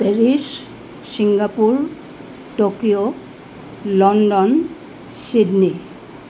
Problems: none marked